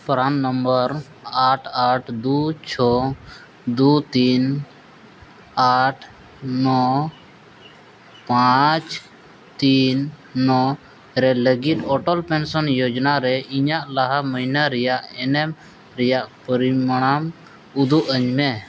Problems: background sounds at intervals